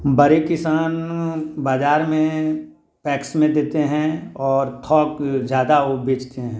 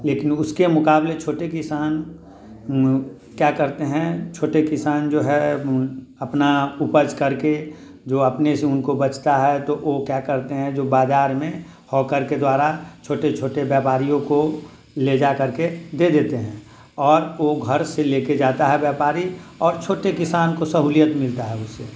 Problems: none marked